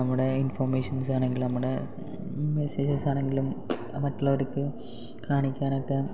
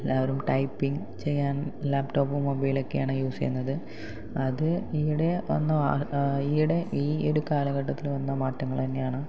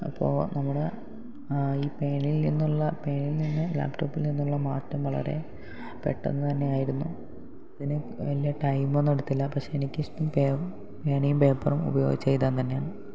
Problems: low volume